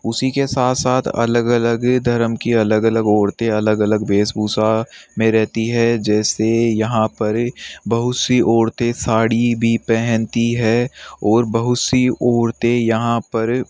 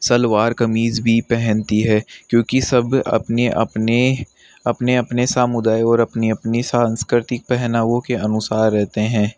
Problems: constant background noise